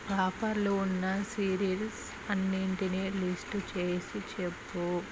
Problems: constant background noise